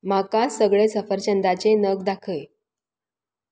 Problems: none marked